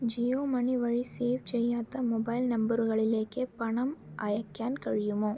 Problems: none marked